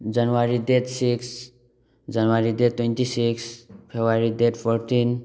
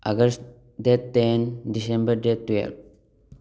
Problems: none marked